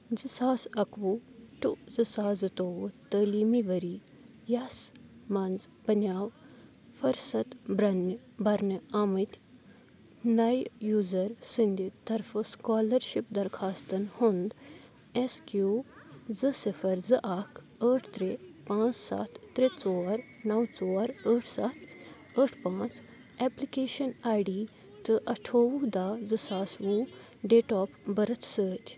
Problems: continuous background conversations